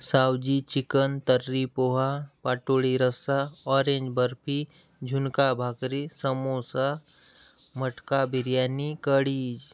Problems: background sounds at intervals